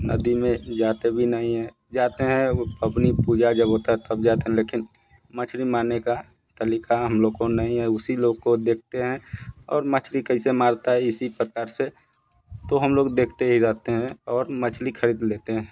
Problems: background sounds at intervals